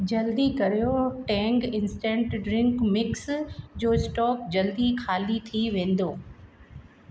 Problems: background conversations at intervals, echo